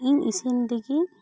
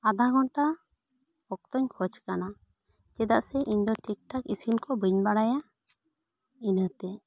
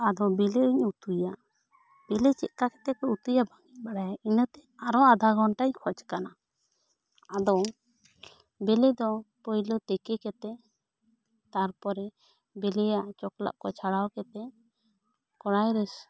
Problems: none marked